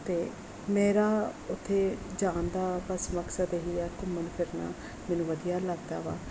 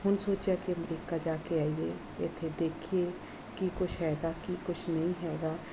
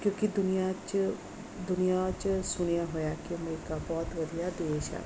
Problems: none marked